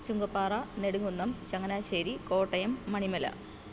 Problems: none marked